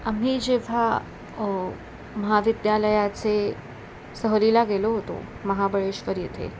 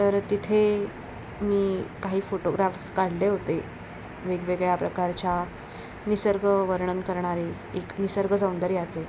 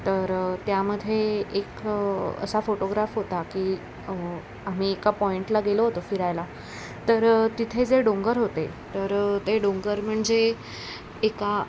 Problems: constant background noise